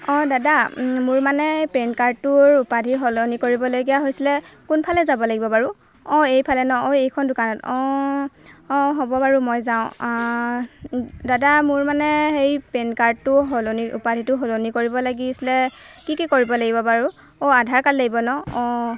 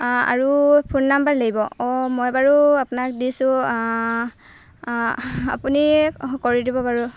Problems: background sounds at intervals